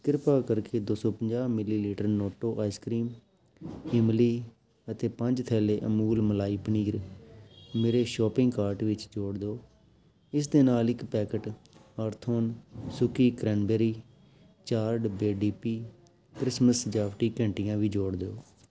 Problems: constant background noise, background conversations at intervals